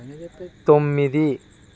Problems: background conversations at intervals